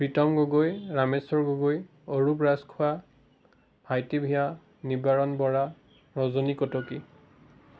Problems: background sounds at intervals